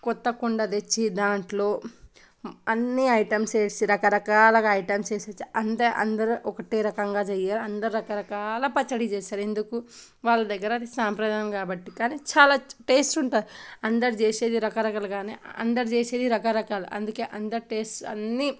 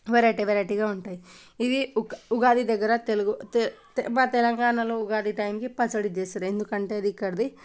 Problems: none marked